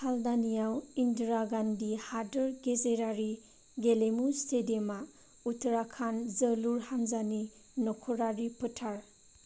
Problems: low volume